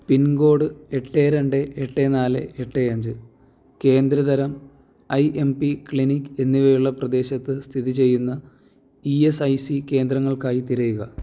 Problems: none marked